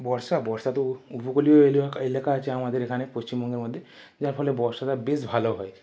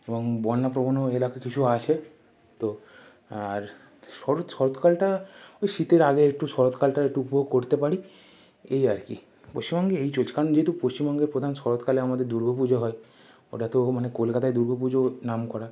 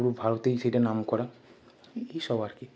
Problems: constant background noise